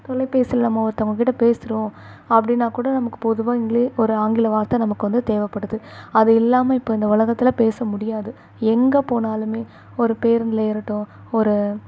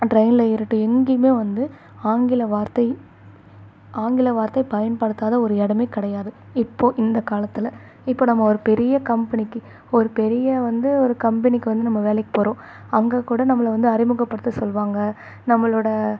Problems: none marked